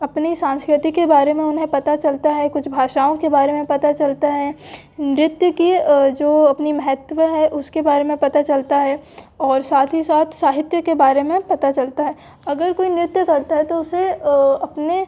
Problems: background sounds at intervals, background conversations at intervals